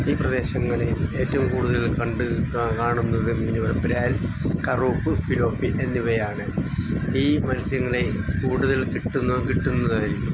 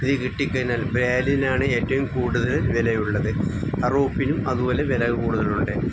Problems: background sounds at intervals